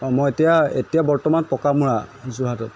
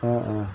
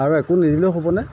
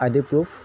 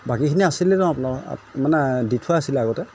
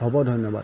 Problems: background sounds at intervals